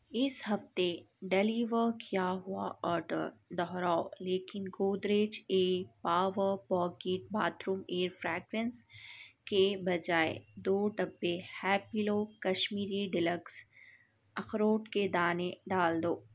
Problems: none marked